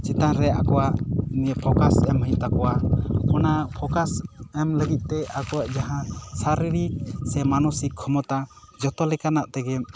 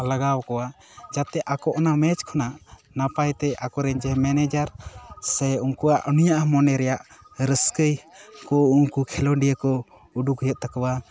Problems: none marked